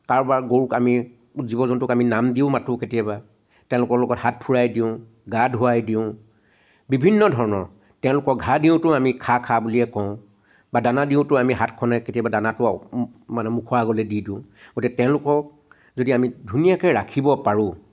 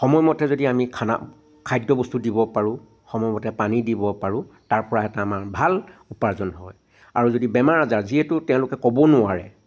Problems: background sounds at intervals